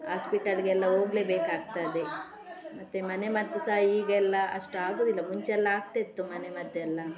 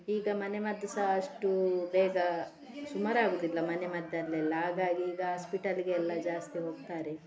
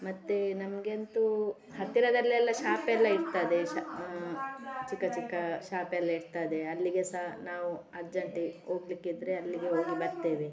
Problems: constant background noise, continuous background conversations